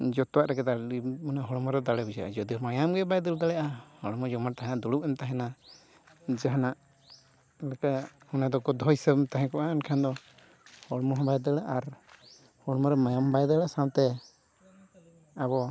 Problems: constant background noise, background conversations at intervals